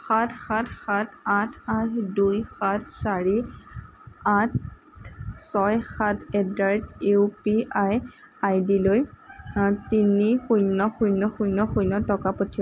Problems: constant background noise, continuous background conversations